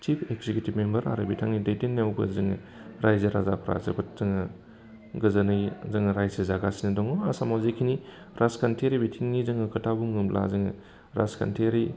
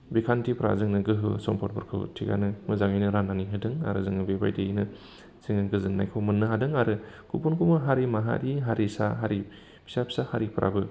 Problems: constant background noise